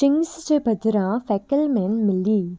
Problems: constant background noise